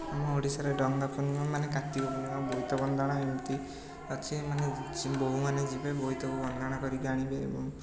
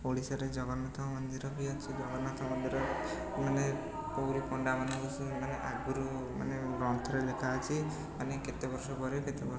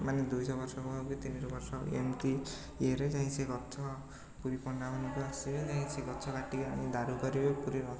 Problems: constant background noise